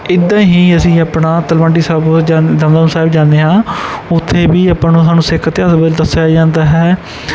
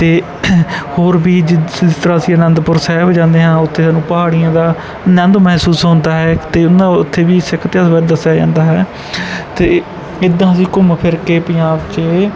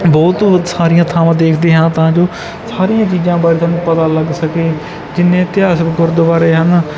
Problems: background sounds at intervals